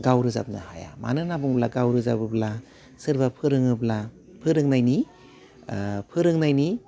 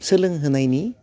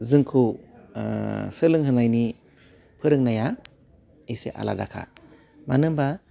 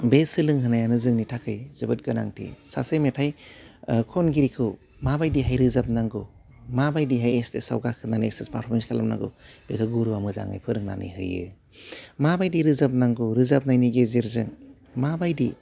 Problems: background sounds at intervals